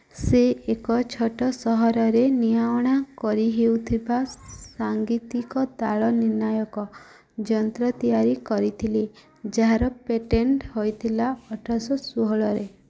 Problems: none marked